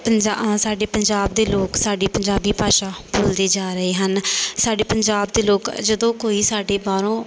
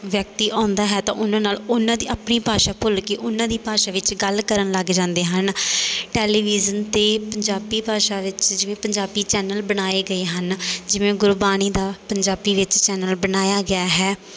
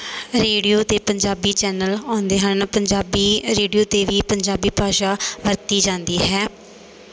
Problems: background sounds at intervals